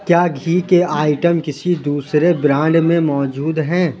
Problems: none marked